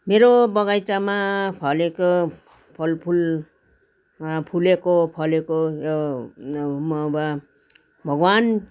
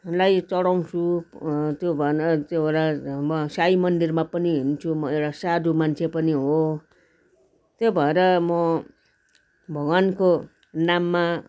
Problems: constant background noise, continuous background conversations